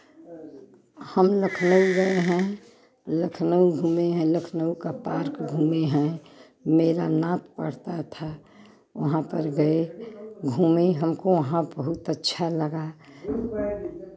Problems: background sounds at intervals, continuous background conversations